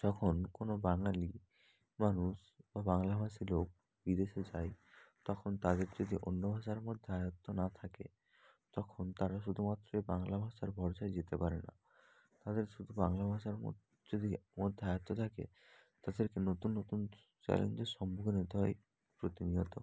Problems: background sounds at intervals, low volume